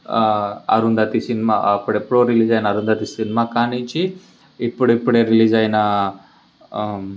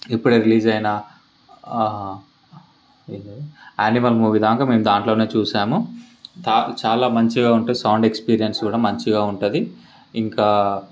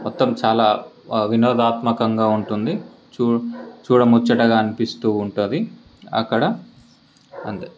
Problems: background sounds at intervals